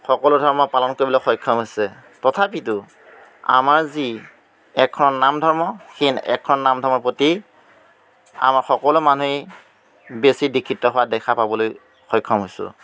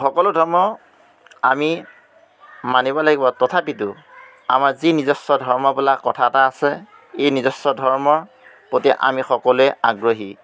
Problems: none marked